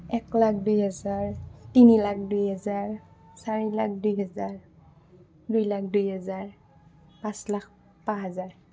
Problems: background sounds at intervals